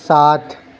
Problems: none marked